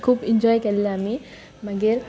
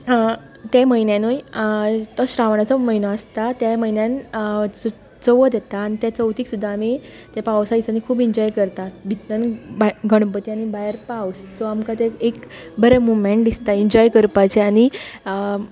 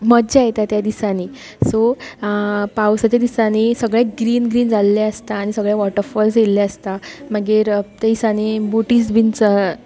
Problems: none marked